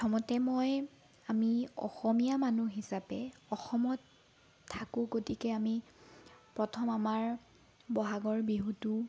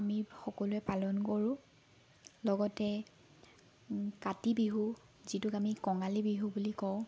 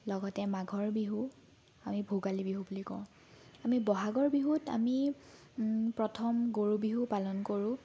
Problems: background sounds at intervals